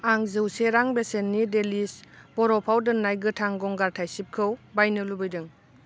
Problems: none marked